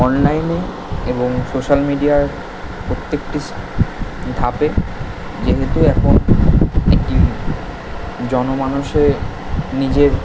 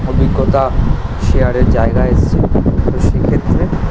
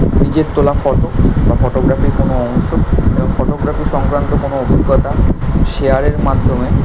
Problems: constant background noise